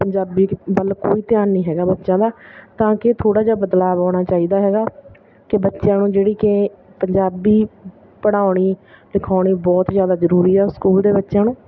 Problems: none marked